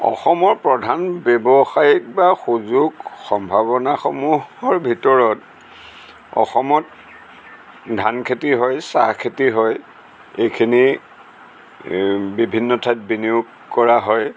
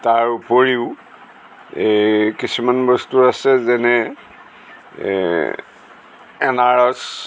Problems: none marked